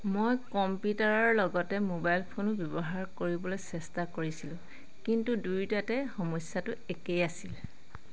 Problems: constant background noise